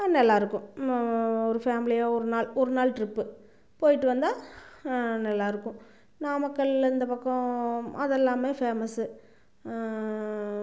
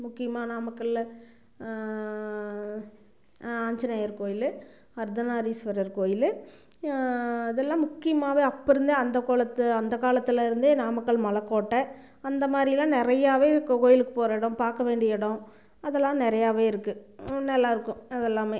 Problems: none marked